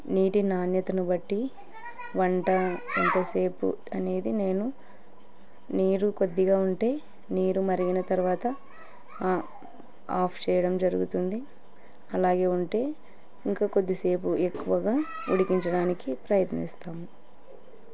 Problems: continuous background conversations